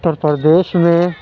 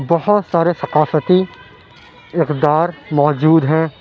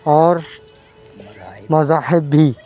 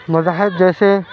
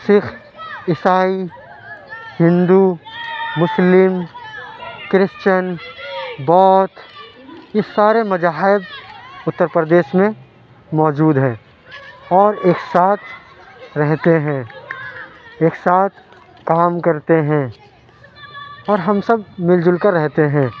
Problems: background conversations at intervals